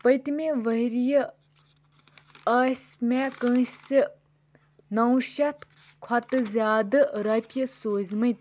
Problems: constant background noise